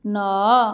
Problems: none marked